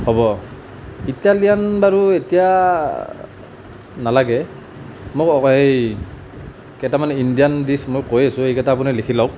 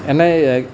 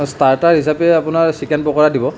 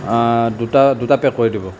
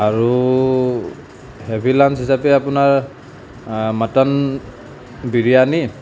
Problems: none marked